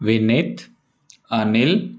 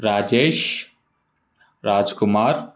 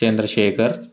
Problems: background sounds at intervals